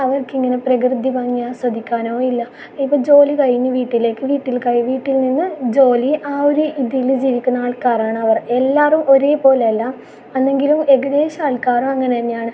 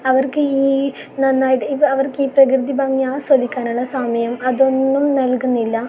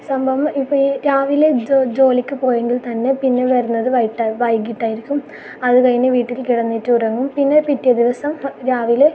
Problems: background sounds at intervals